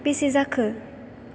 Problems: constant background noise